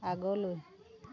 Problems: low volume